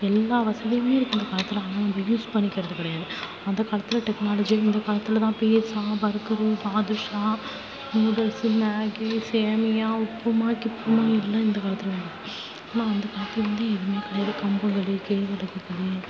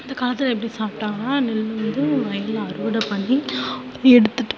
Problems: constant background noise, low volume